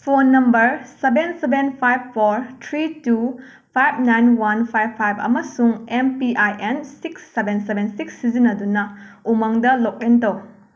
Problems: none marked